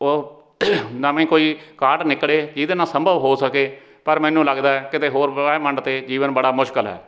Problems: background sounds at intervals, background conversations at intervals